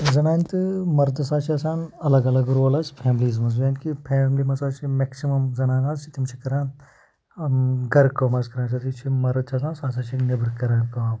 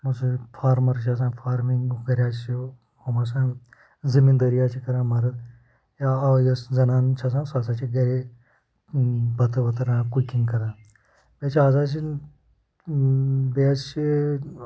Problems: background sounds at intervals, low volume